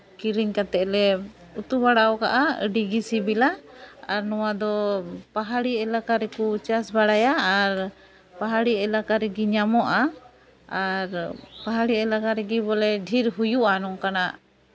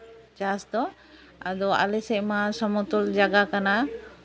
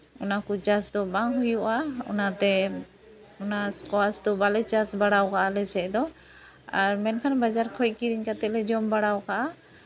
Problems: none marked